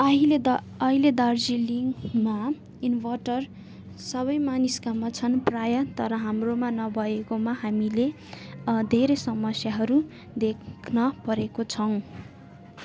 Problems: constant background noise